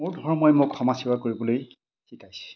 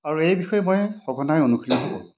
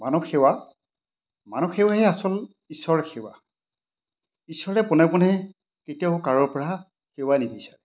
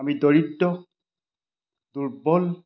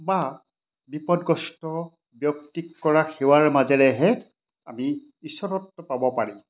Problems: none marked